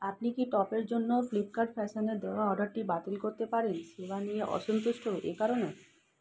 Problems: constant background noise